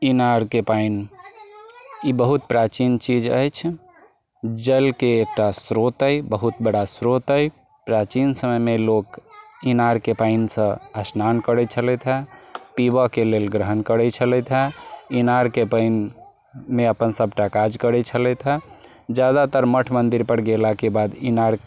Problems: background sounds at intervals